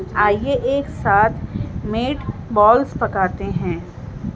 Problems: none marked